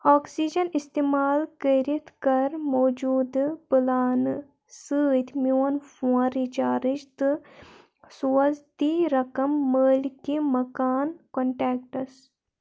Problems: none marked